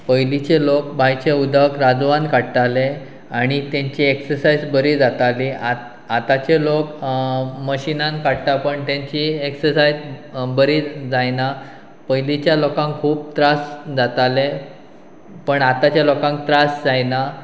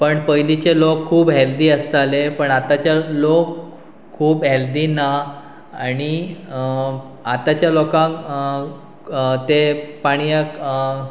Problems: constant background noise